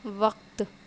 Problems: constant background noise